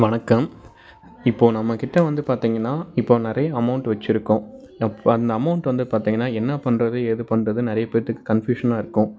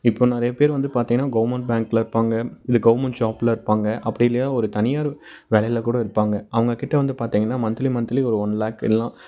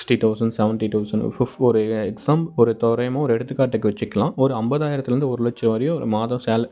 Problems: background sounds at intervals, background conversations at intervals